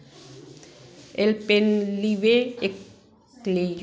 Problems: background sounds at intervals